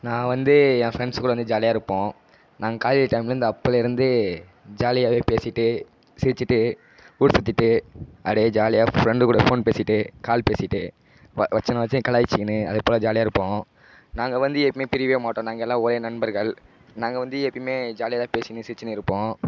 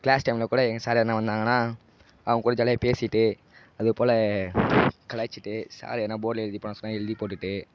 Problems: background sounds at intervals, low volume